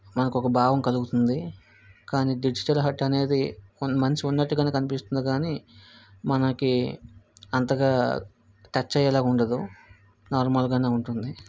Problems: background sounds at intervals